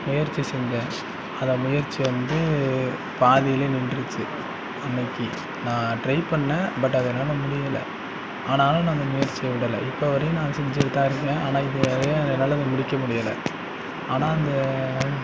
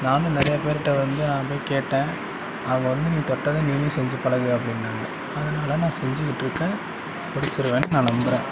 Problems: background sounds at intervals